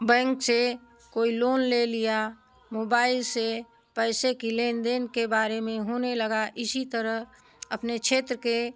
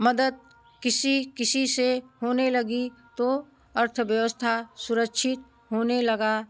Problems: none marked